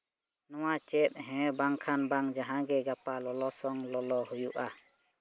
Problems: background sounds at intervals